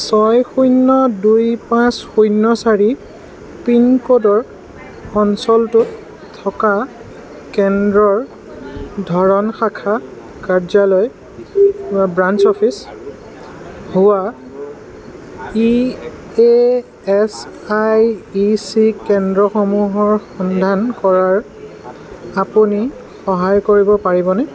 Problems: constant background noise